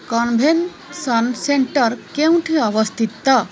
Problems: constant background noise